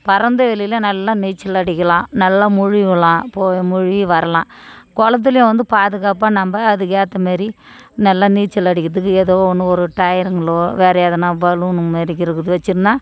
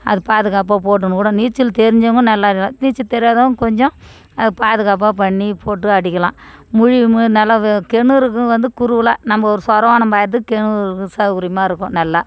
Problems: background conversations at intervals